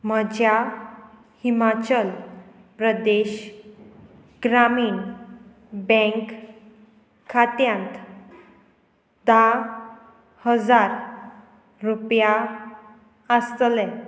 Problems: none marked